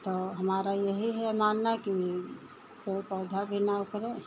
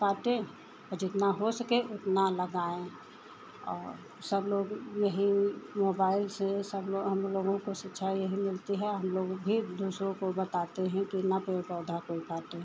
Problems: none marked